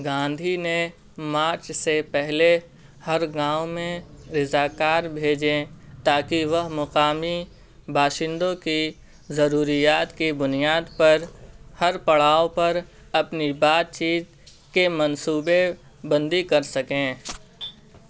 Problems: constant background noise